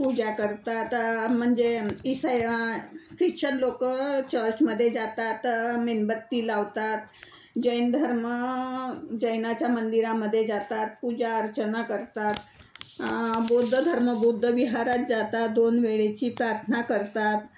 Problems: none marked